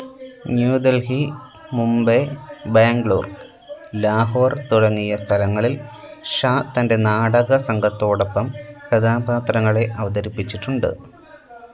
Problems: none marked